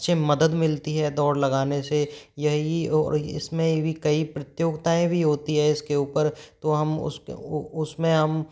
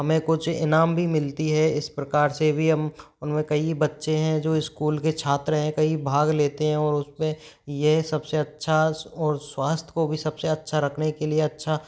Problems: background sounds at intervals